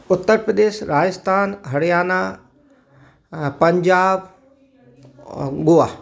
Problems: background sounds at intervals, continuous background conversations